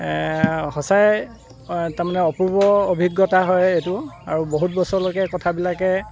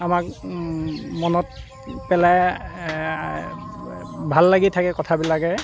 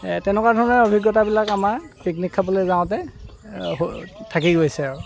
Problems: constant background noise